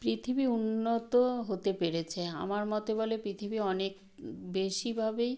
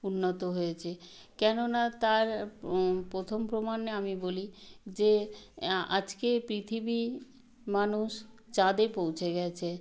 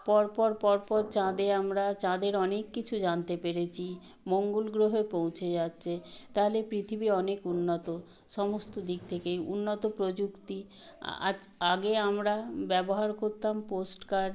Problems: background sounds at intervals